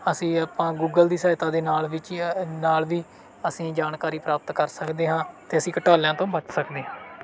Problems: background sounds at intervals